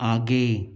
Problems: constant background noise